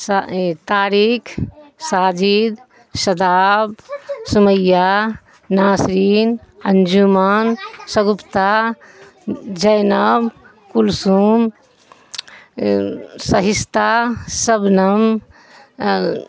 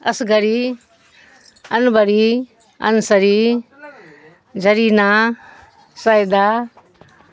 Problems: constant background noise, background conversations at intervals